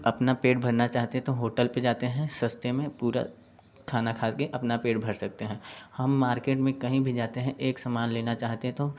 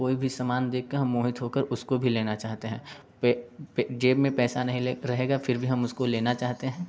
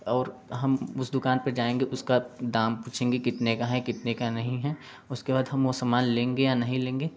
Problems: background sounds at intervals